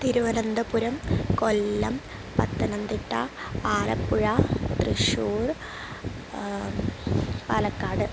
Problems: constant background noise